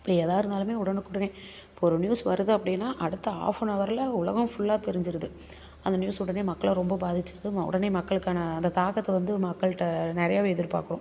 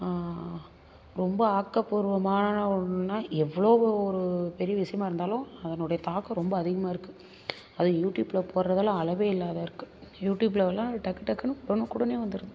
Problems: none marked